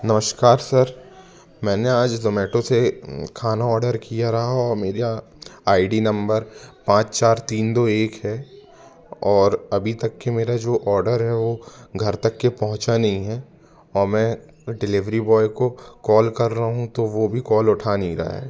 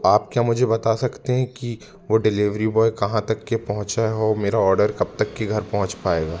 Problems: none marked